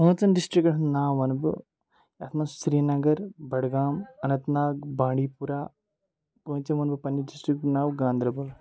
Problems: background sounds at intervals, background conversations at intervals